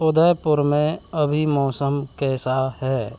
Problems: constant background noise